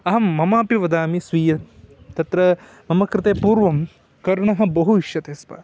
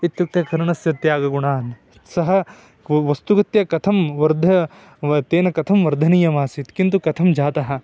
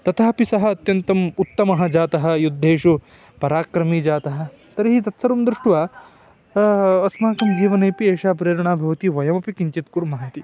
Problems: background sounds at intervals